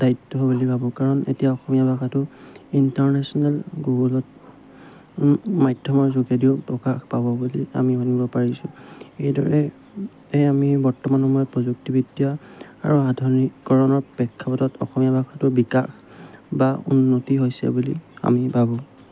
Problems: background sounds at intervals